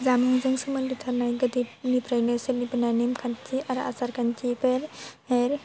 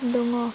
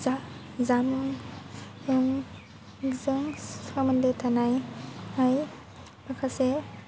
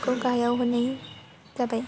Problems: low volume